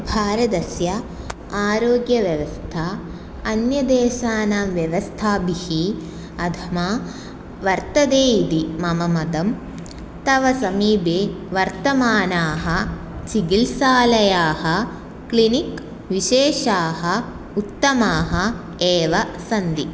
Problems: none marked